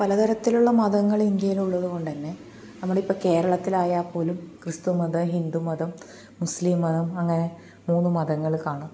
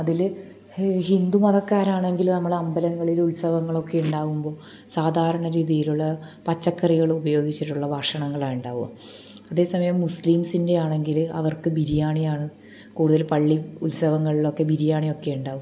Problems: none marked